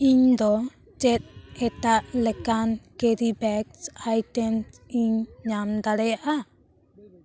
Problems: background sounds at intervals, background conversations at intervals